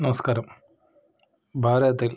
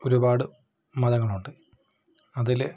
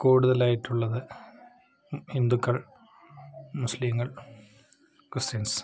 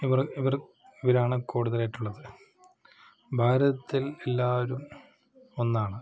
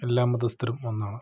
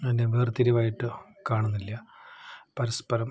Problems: background sounds at intervals